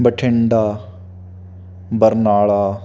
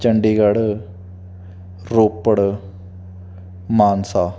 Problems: none marked